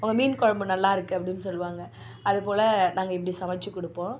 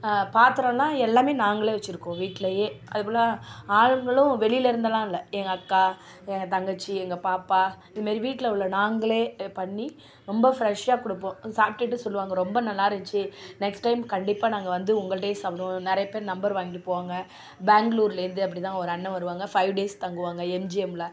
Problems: background sounds at intervals